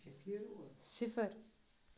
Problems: background conversations at intervals